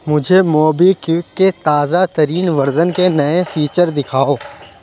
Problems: background sounds at intervals